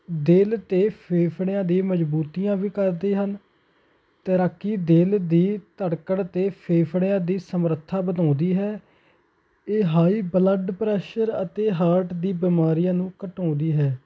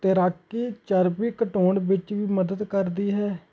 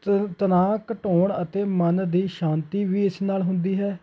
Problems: constant background noise